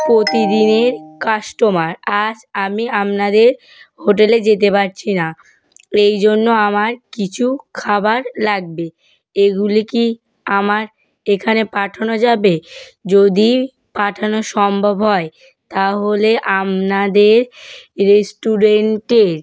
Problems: background sounds at intervals